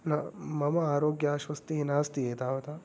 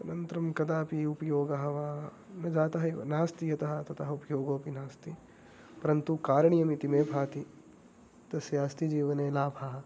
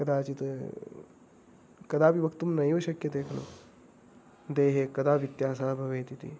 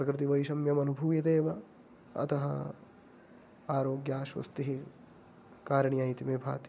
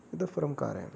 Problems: none marked